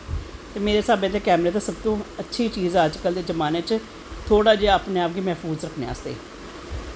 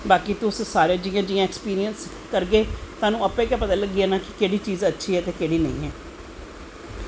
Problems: none marked